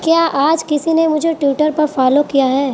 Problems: constant background noise